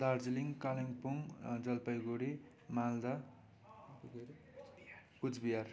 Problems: continuous background conversations